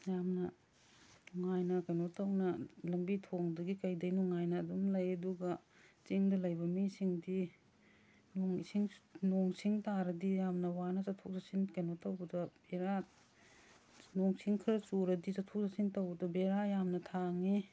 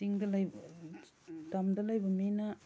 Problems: none marked